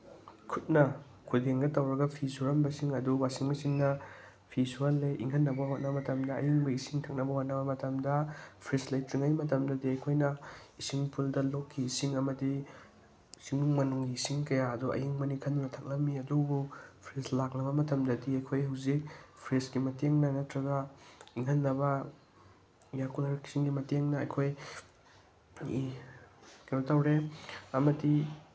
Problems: none marked